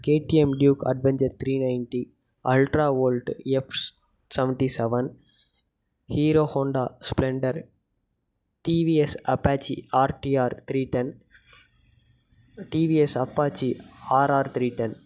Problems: none marked